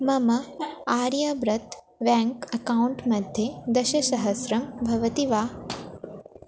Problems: background sounds at intervals